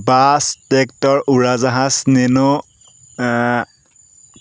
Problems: background sounds at intervals